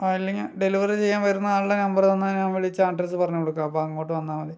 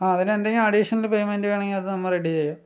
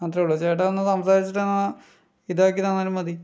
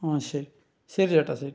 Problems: none marked